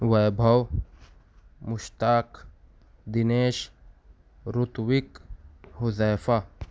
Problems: none marked